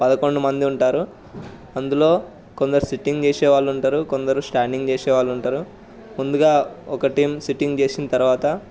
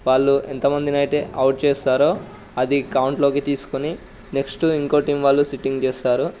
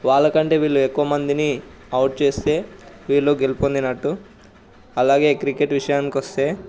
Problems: none marked